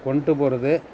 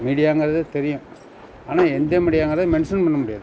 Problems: constant background noise